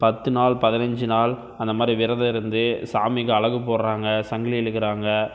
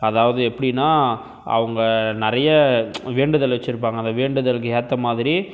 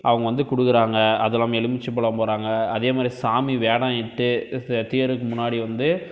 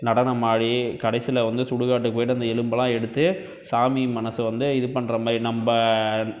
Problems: none marked